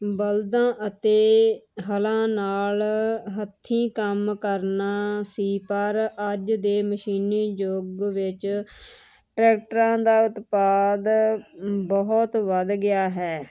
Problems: constant background noise